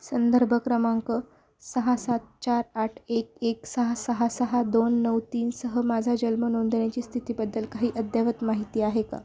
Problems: none marked